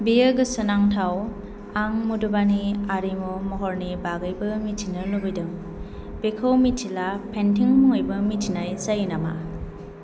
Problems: none marked